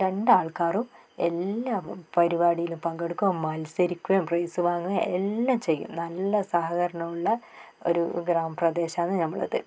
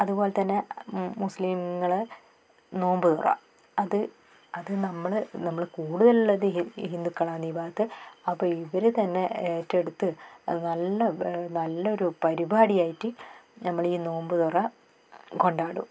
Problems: none marked